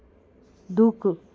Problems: constant background noise